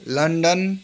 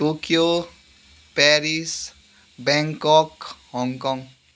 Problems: background sounds at intervals